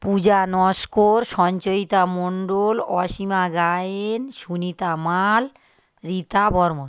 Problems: constant background noise